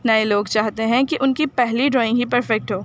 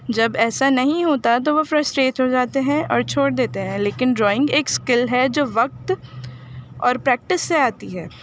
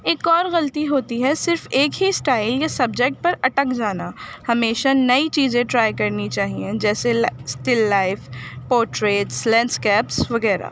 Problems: background sounds at intervals